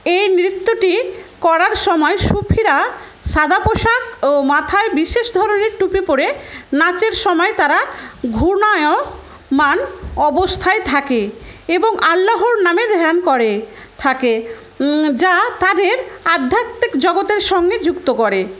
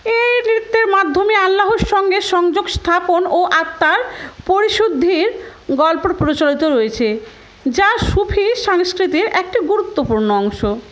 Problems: constant background noise, background conversations at intervals